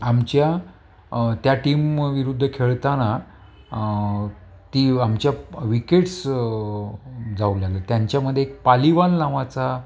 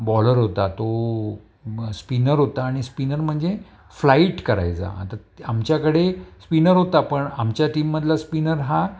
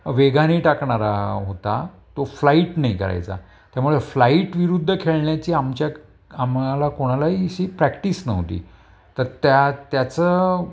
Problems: constant background noise, background conversations at intervals